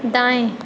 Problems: none marked